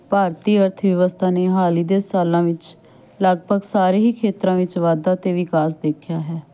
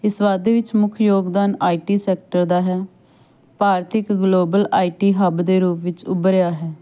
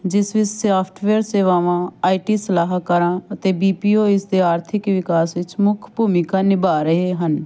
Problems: background sounds at intervals, continuous background conversations